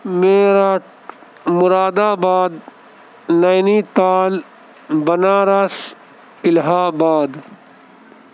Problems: none marked